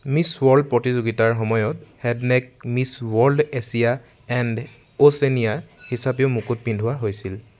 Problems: background sounds at intervals